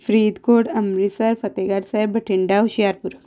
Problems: none marked